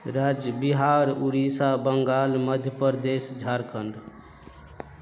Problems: background sounds at intervals, continuous background conversations